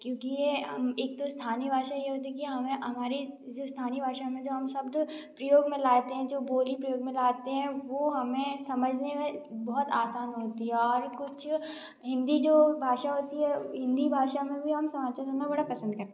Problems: background sounds at intervals